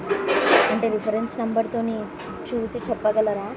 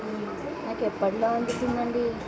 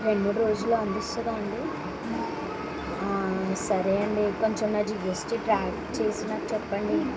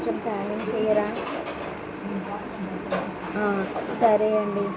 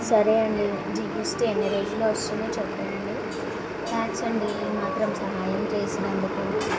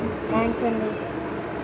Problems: constant background noise